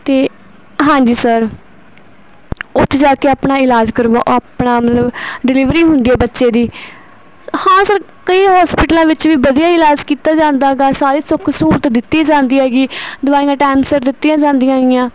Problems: none marked